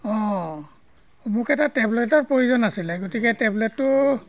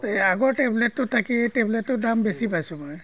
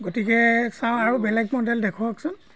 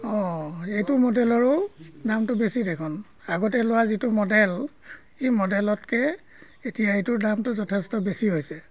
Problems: constant background noise